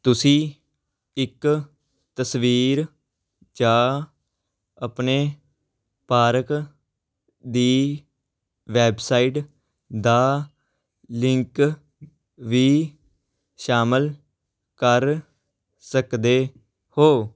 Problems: background sounds at intervals